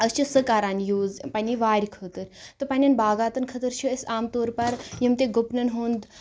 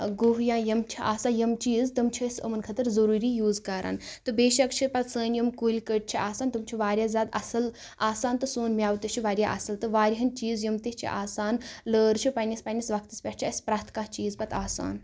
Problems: none marked